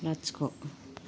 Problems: low volume